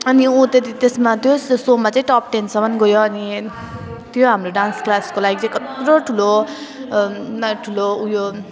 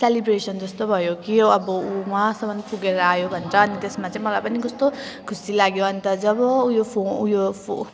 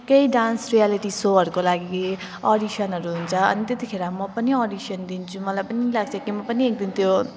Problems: constant background noise